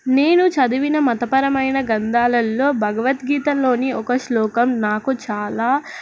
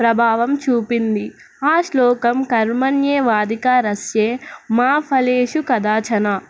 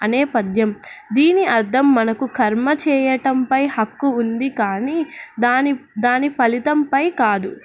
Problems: none marked